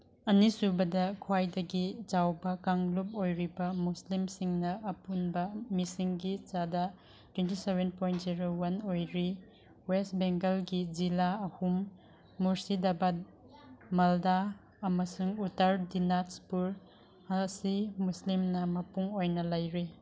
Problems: none marked